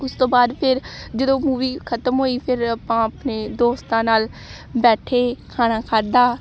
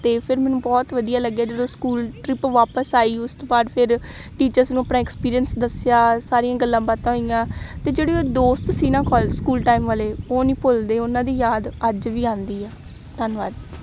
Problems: none marked